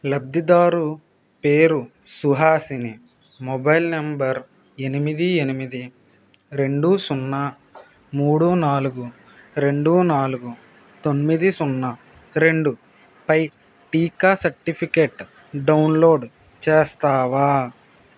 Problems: constant background noise